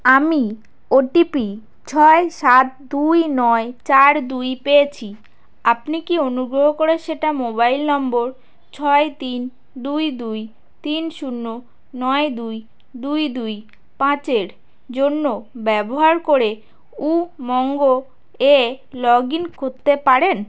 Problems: none marked